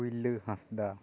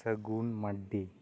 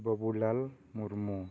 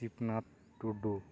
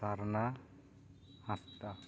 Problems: background sounds at intervals